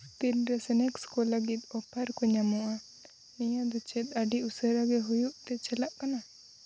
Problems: constant background noise